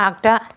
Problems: none marked